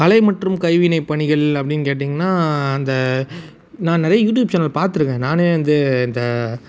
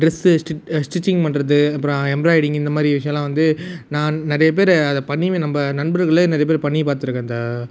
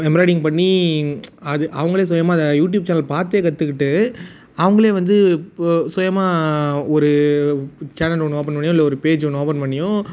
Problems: none marked